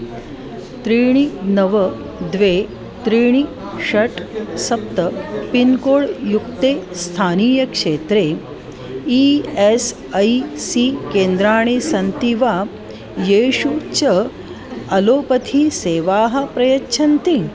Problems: constant background noise, continuous background conversations